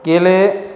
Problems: constant background noise